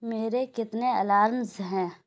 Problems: low volume